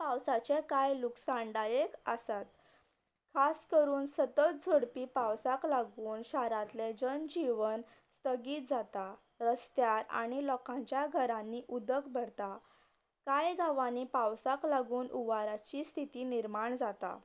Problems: constant background noise